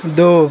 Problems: constant background noise